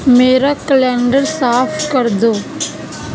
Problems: constant background noise